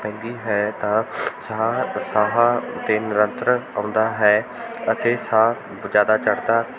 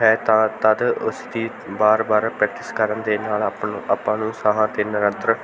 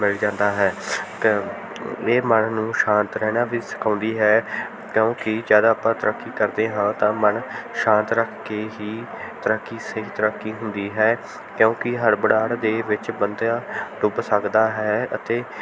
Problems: continuous background conversations